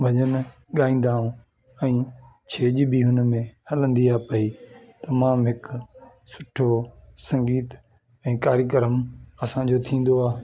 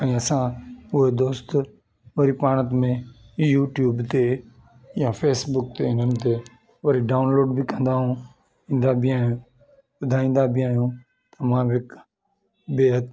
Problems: constant background noise